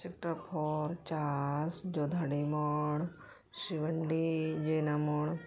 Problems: background conversations at intervals